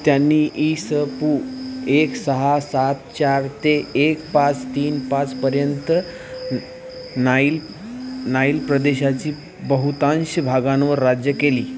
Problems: constant background noise